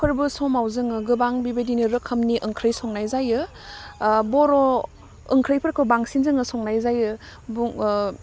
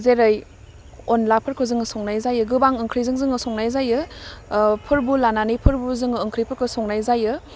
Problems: none marked